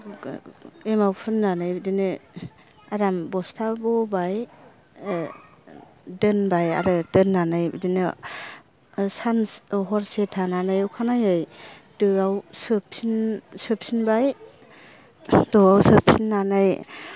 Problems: none marked